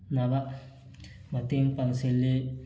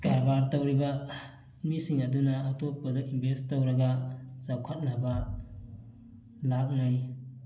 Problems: none marked